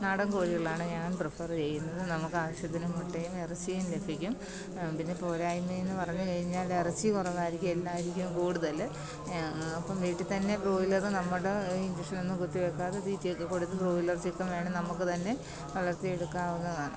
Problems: constant background noise, low volume